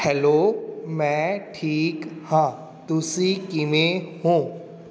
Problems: background sounds at intervals